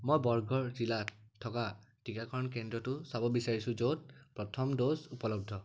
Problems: background sounds at intervals